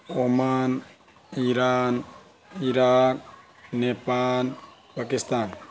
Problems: constant background noise